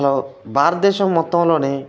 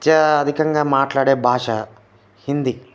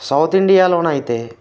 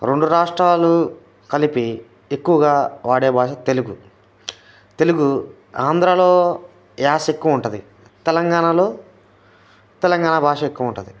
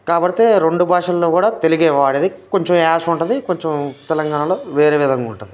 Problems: constant background noise